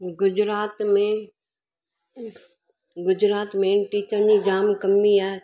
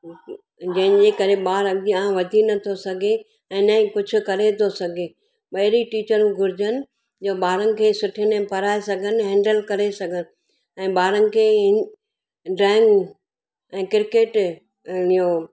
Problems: none marked